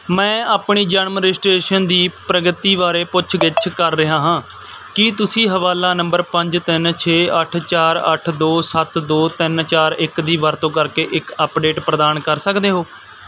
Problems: background sounds at intervals